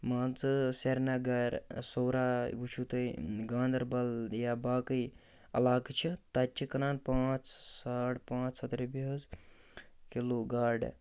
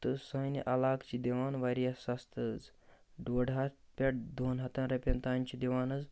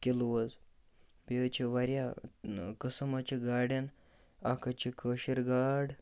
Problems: constant background noise